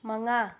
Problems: low volume